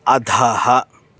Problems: constant background noise